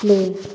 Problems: none marked